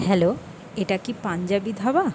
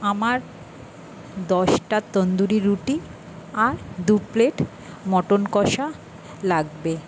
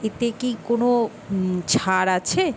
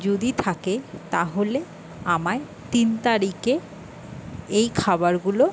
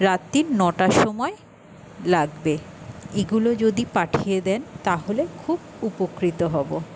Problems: constant background noise